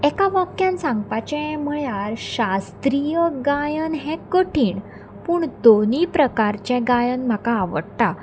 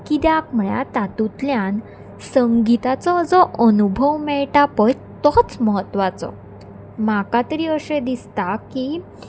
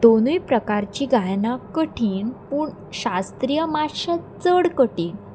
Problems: none marked